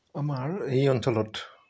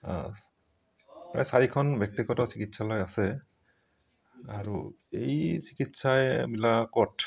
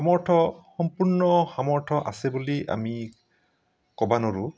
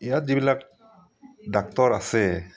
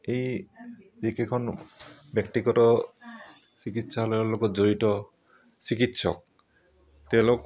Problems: background sounds at intervals